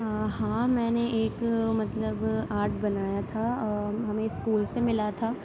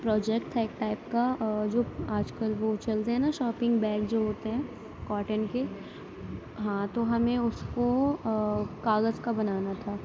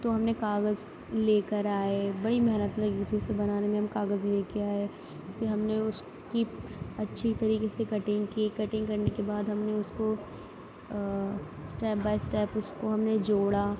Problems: none marked